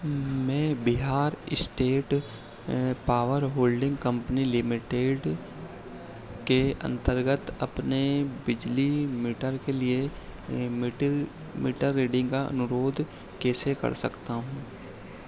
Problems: constant background noise